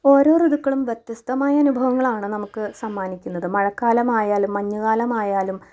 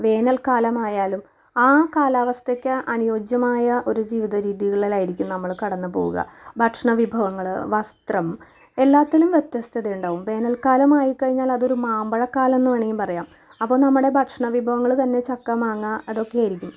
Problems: none marked